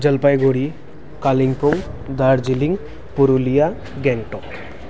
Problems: none marked